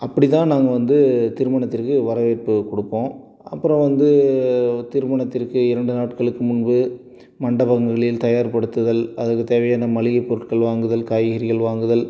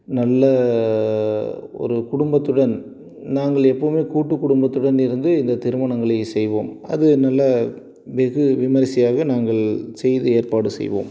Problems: none marked